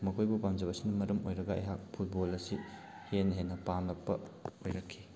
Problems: background sounds at intervals